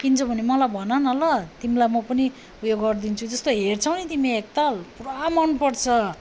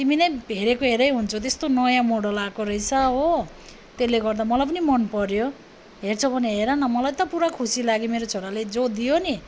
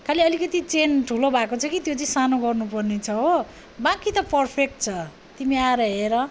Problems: none marked